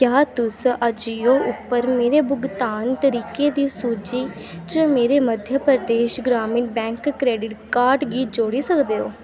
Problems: constant background noise